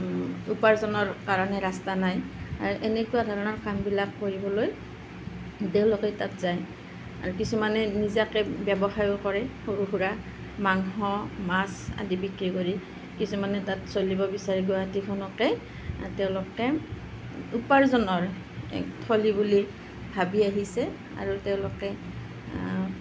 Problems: none marked